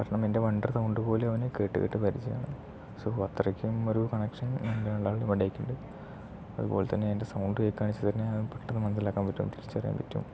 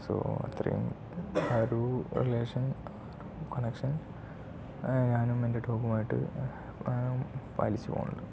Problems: low volume